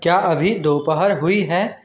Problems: constant background noise